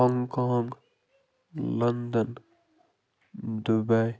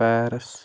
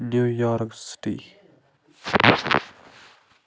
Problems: constant background noise